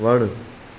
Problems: constant background noise